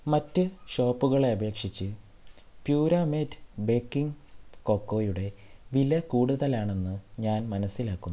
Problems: low volume